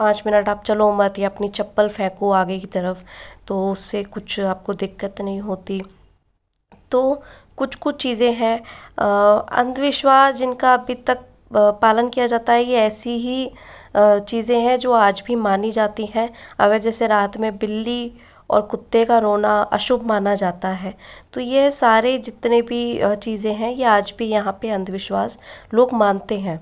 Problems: echo